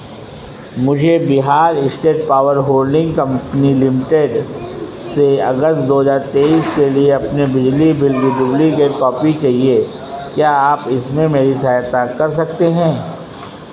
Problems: constant background noise